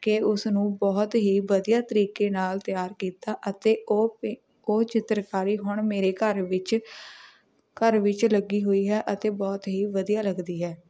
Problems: background sounds at intervals, background conversations at intervals